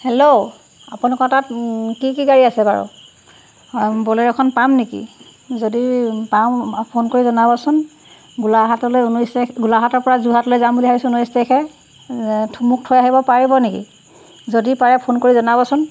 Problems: none marked